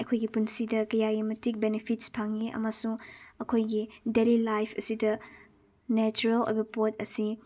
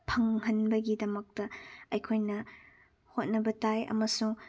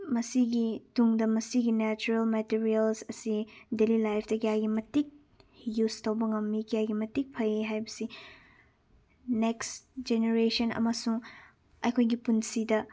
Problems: none marked